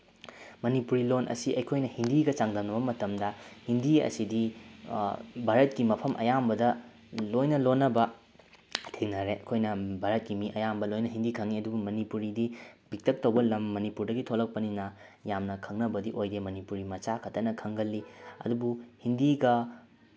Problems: background sounds at intervals